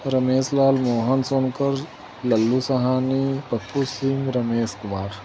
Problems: constant background noise